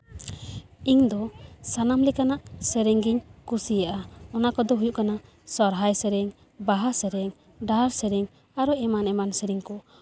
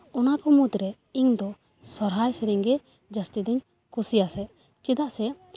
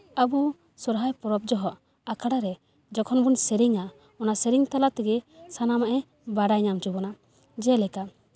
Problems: background sounds at intervals